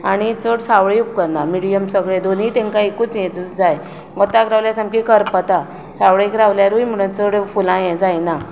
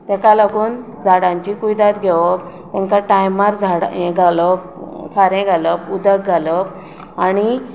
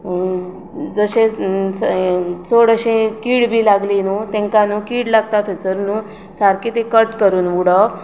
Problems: constant background noise